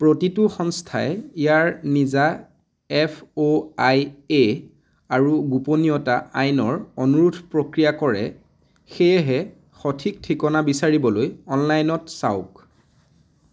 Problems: constant background noise